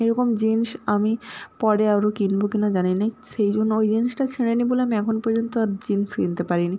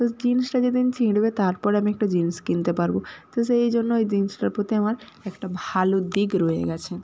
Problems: constant background noise